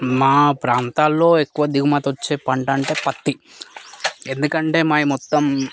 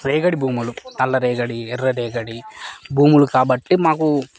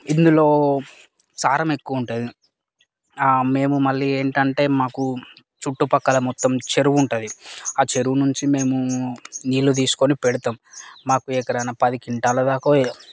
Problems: constant background noise, background conversations at intervals